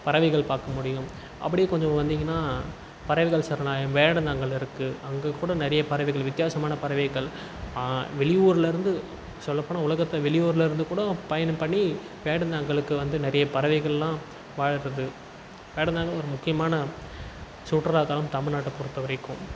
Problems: constant background noise